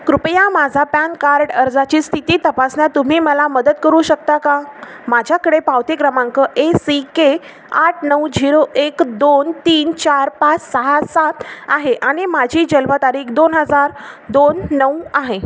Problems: constant background noise